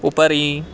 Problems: none marked